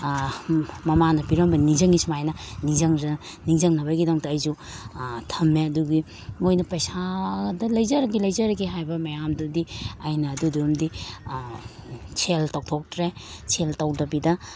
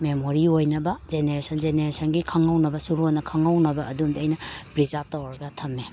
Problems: none marked